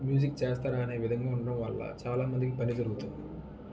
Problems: background sounds at intervals